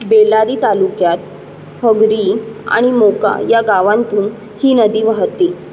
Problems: constant background noise